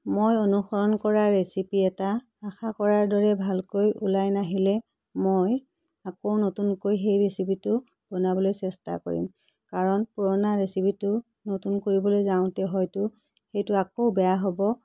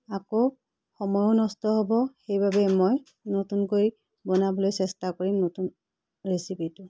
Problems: background sounds at intervals